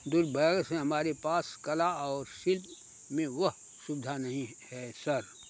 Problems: constant background noise